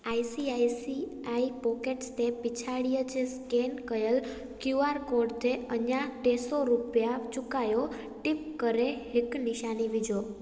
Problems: constant background noise